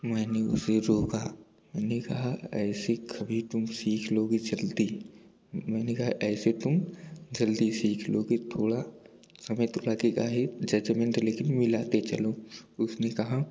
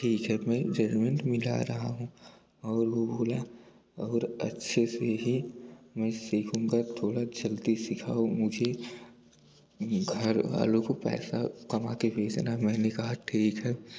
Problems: none marked